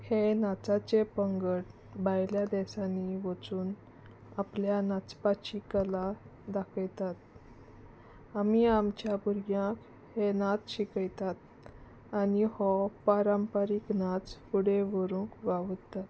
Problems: constant background noise